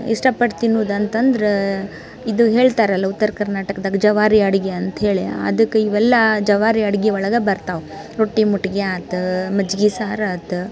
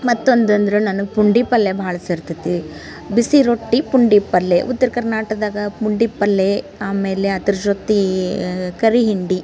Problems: none marked